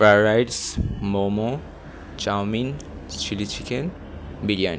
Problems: none marked